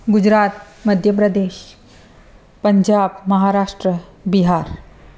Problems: constant background noise, echo